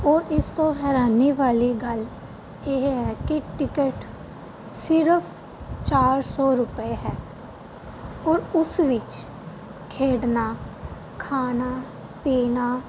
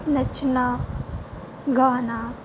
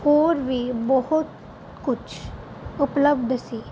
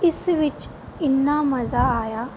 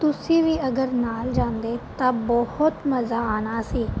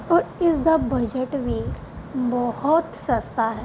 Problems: constant background noise